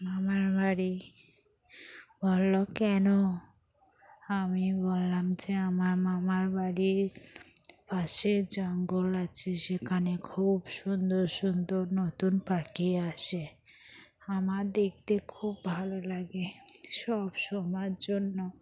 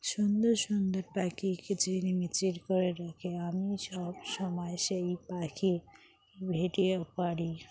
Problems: background sounds at intervals, continuous background conversations